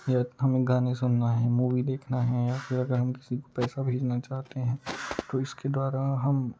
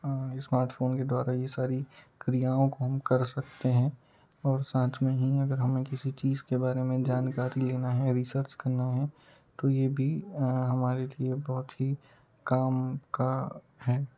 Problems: low volume